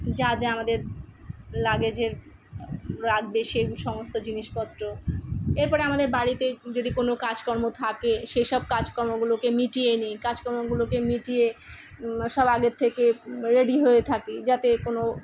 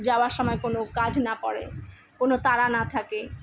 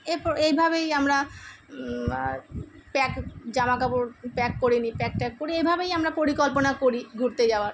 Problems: background sounds at intervals